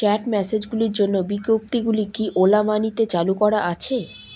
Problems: background sounds at intervals